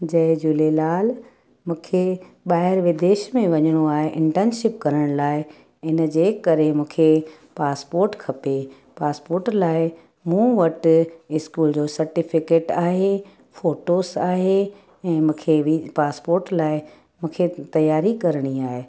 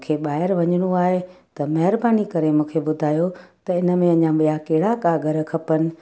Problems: background sounds at intervals, echo